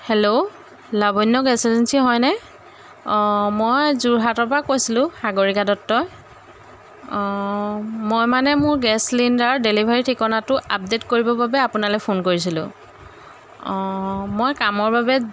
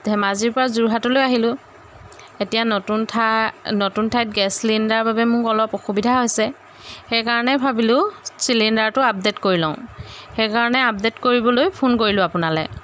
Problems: constant background noise